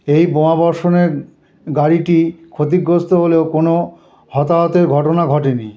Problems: none marked